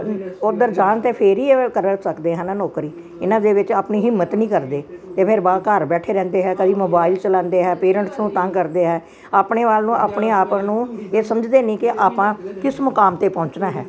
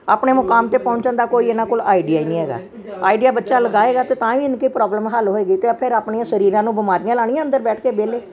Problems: background sounds at intervals